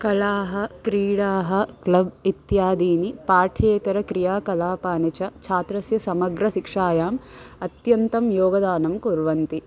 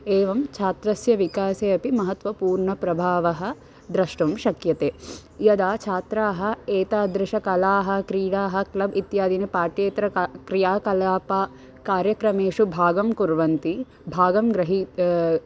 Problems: constant background noise